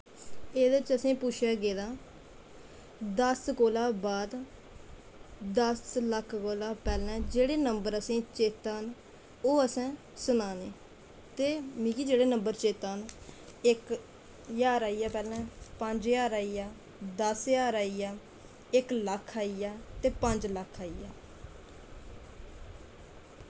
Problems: constant background noise